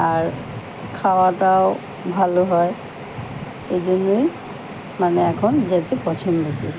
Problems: none marked